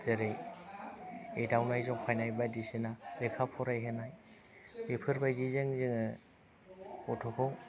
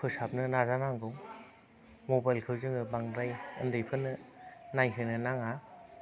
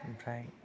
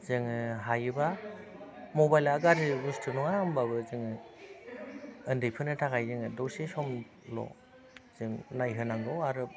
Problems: constant background noise